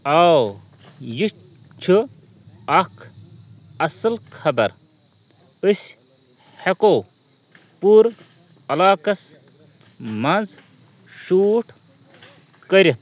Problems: constant background noise, continuous background conversations